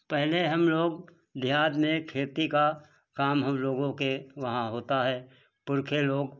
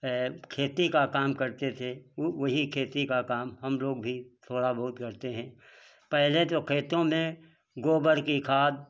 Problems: background sounds at intervals